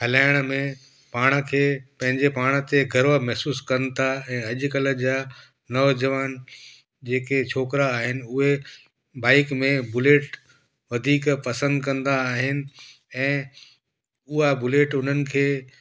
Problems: echo